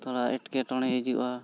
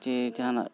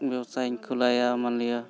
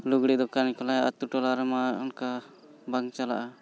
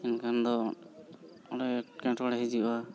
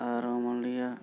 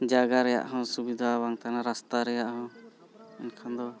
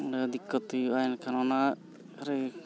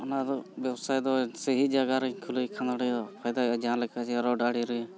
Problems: background sounds at intervals, continuous background conversations